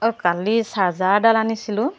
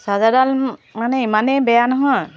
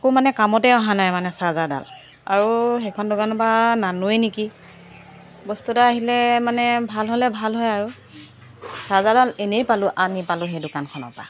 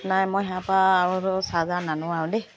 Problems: background sounds at intervals